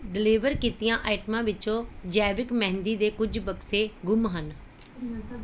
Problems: none marked